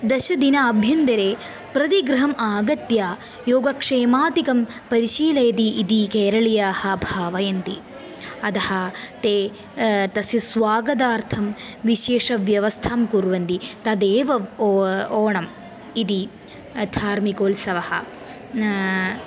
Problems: none marked